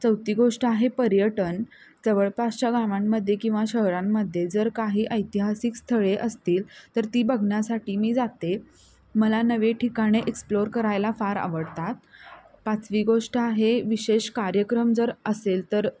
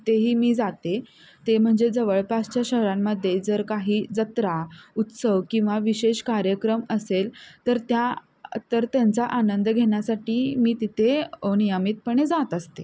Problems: none marked